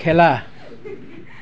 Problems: none marked